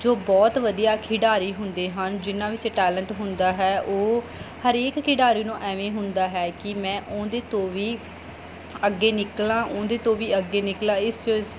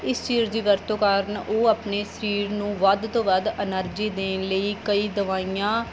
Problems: background sounds at intervals